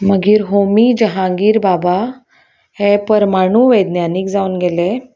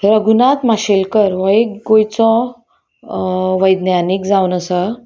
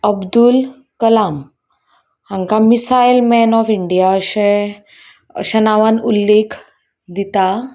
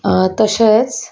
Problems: background sounds at intervals